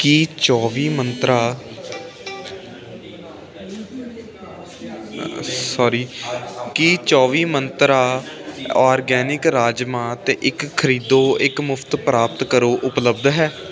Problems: constant background noise